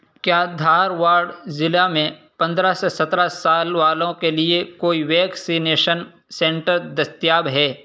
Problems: constant background noise